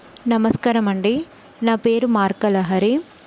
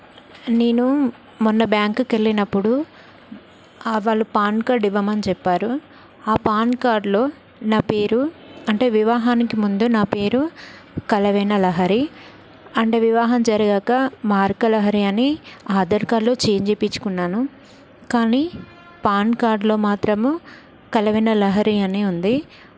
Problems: none marked